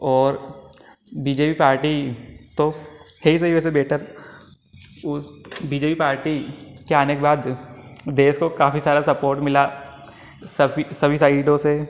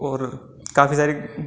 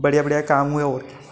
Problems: constant background noise